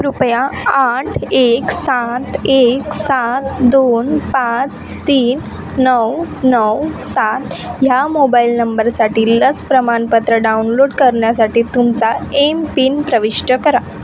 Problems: constant background noise, continuous background conversations